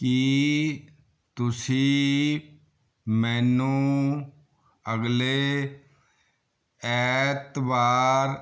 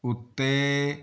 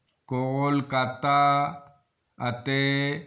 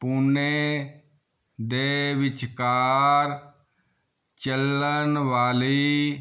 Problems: none marked